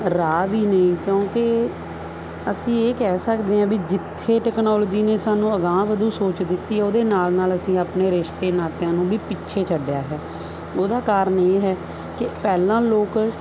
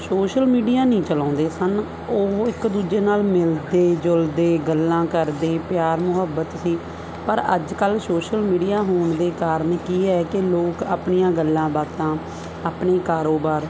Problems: none marked